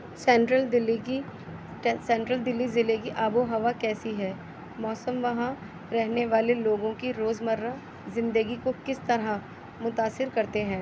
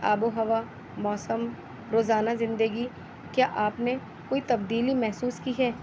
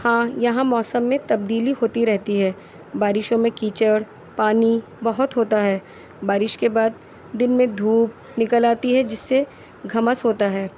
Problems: constant background noise